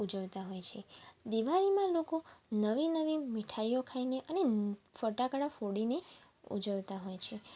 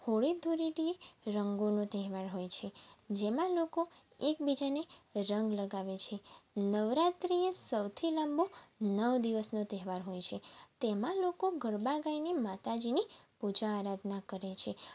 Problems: background sounds at intervals